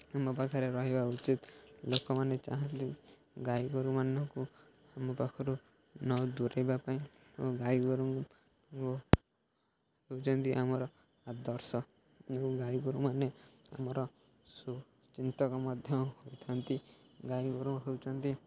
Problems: none marked